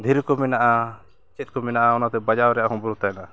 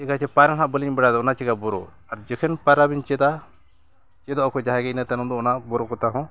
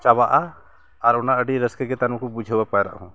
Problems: constant background noise, background conversations at intervals